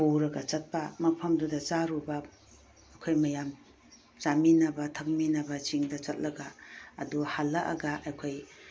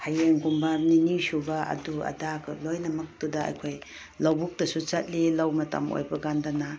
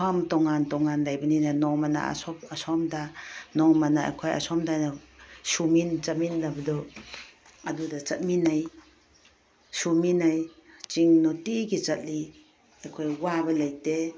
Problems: background sounds at intervals